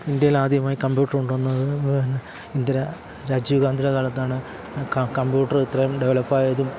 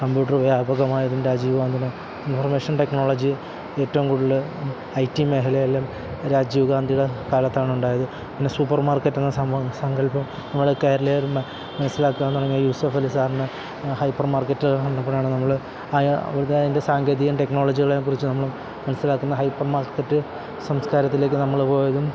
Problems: constant background noise